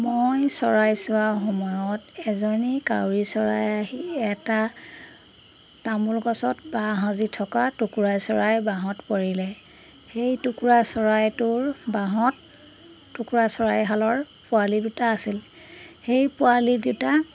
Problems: background sounds at intervals